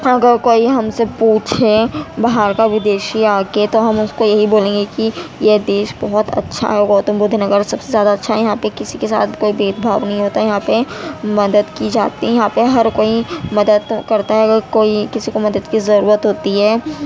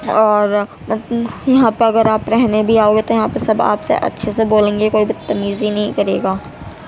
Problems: constant background noise, background conversations at intervals